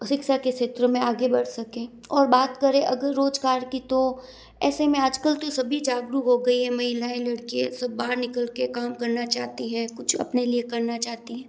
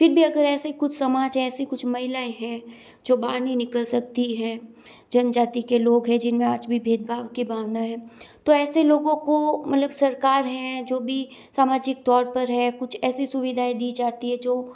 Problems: none marked